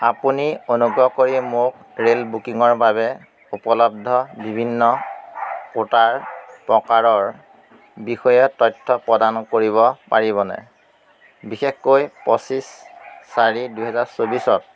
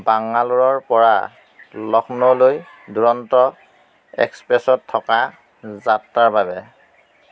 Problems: constant background noise